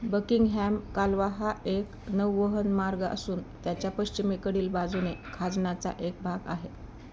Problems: constant background noise